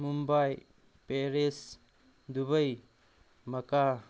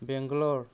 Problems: none marked